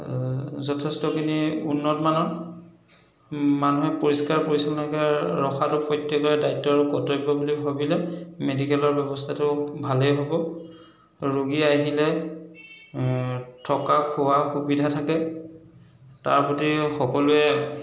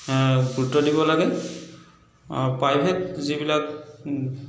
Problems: echo